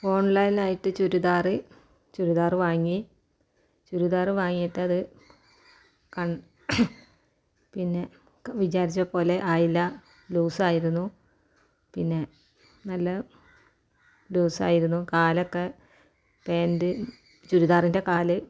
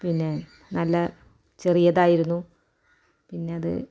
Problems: none marked